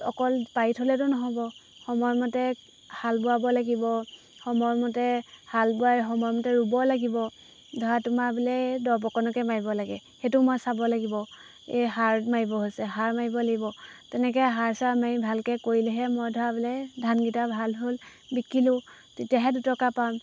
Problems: background sounds at intervals